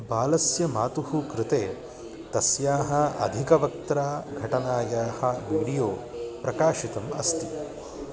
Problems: background sounds at intervals